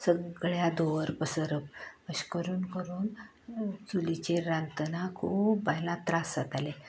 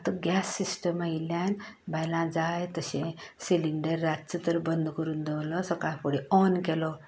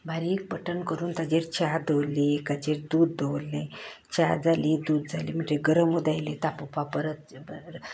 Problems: none marked